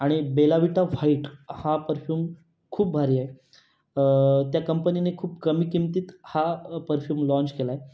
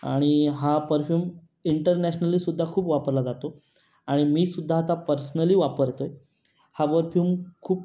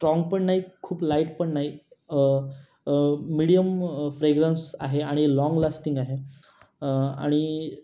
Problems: none marked